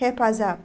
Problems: none marked